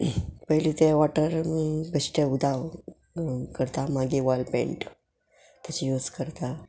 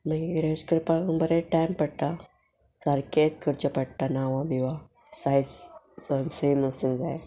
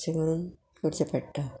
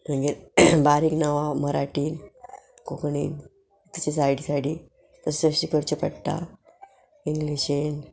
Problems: background sounds at intervals